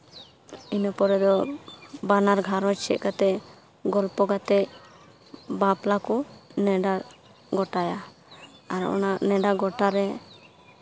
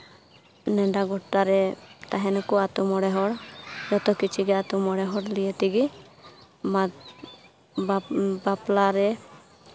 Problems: background conversations at intervals